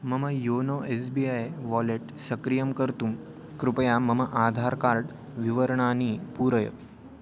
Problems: constant background noise